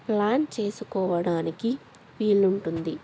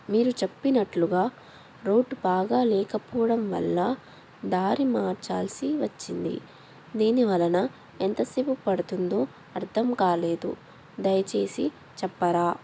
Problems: none marked